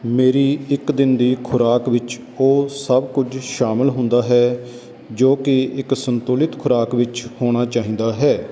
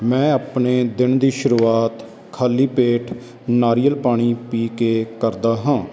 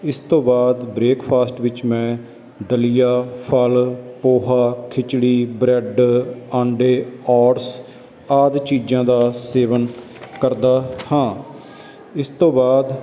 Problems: background sounds at intervals